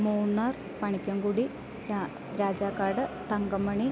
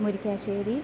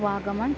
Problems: none marked